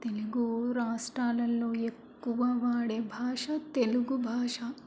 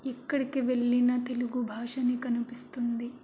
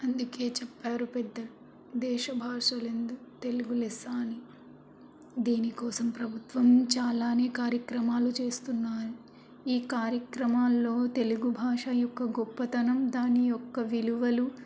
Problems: constant background noise